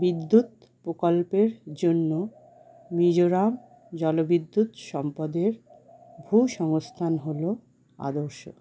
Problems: none marked